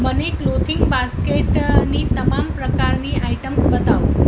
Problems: constant background noise